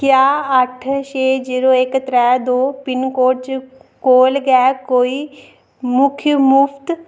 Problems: background conversations at intervals